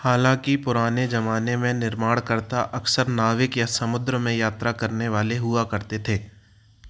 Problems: background sounds at intervals